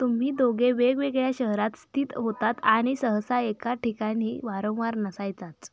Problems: none marked